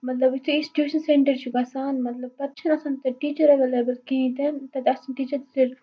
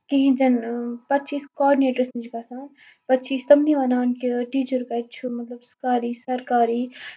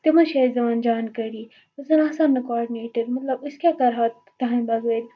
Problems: constant background noise